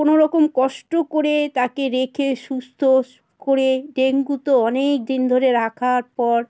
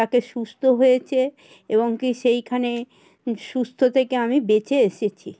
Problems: constant background noise